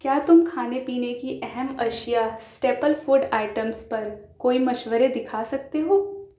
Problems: none marked